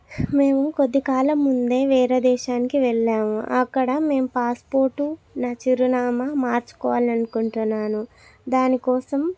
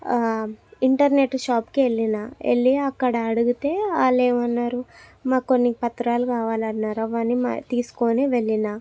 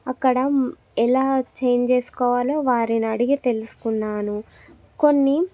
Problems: none marked